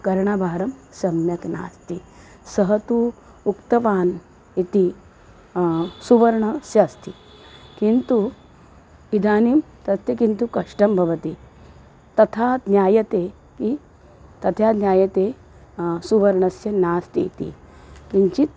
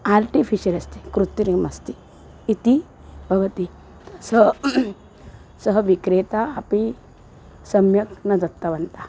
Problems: background sounds at intervals